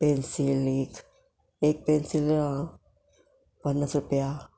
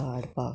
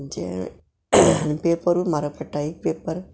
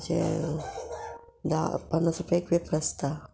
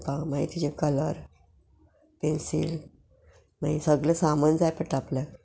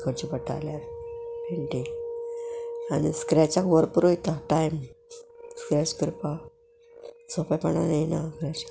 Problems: background sounds at intervals